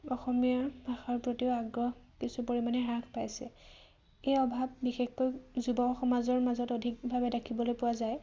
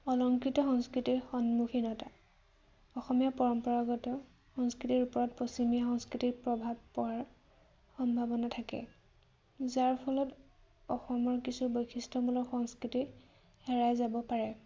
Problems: none marked